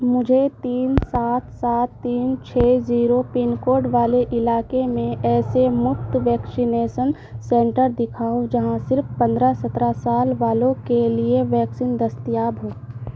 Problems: constant background noise